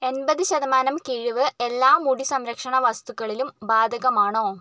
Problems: none marked